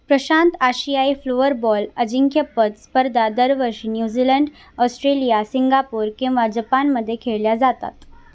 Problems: none marked